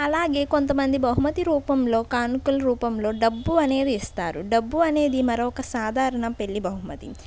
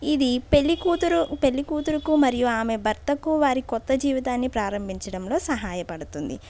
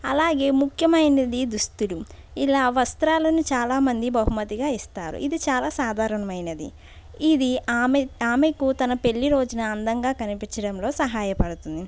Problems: background sounds at intervals